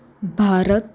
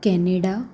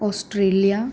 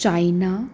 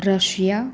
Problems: none marked